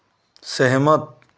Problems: constant background noise